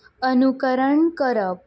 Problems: none marked